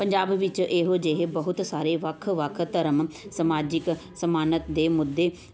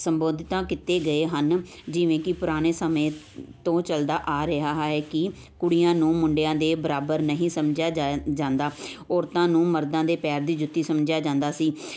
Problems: none marked